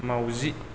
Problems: constant background noise